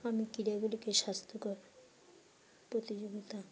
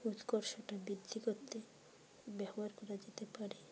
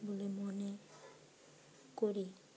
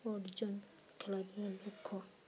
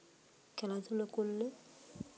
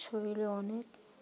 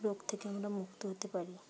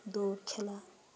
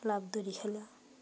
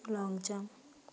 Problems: constant background noise